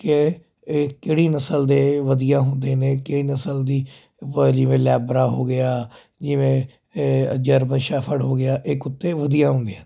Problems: constant background noise